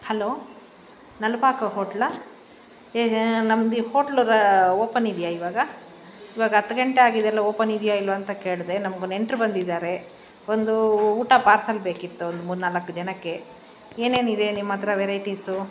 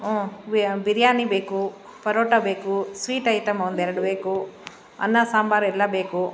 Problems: background sounds at intervals